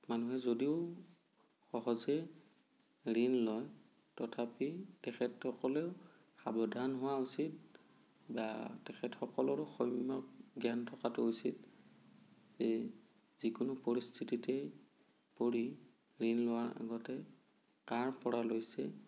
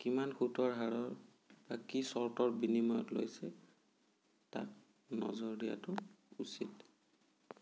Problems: low volume